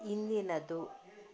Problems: low volume